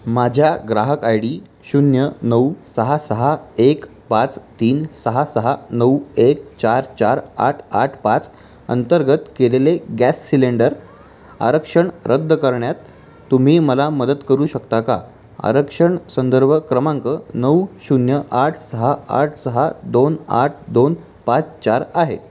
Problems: constant background noise